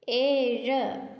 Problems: low volume